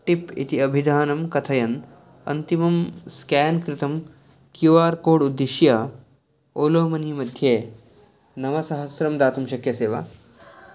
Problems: none marked